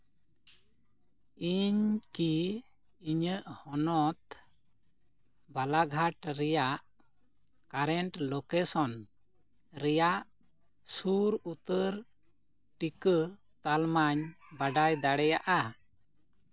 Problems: constant background noise